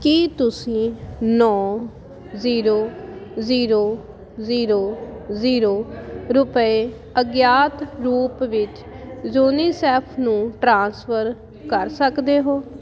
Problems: constant background noise